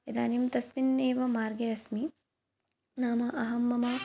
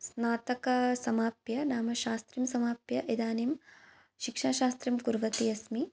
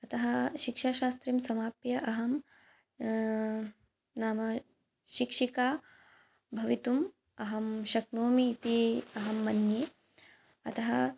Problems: background sounds at intervals